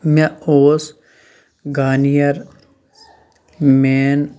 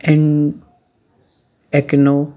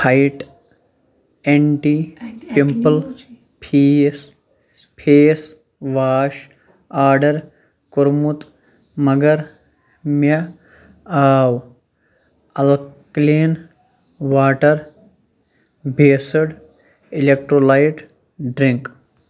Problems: background conversations at intervals